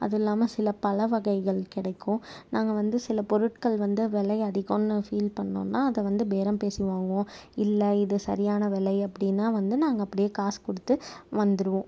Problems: none marked